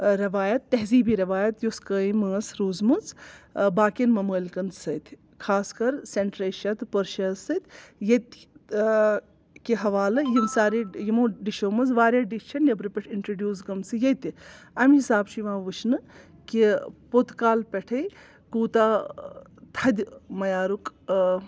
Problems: none marked